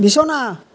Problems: background conversations at intervals